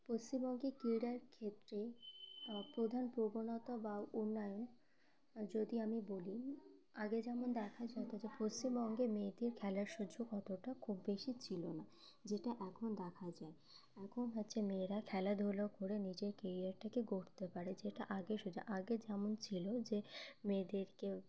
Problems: constant background noise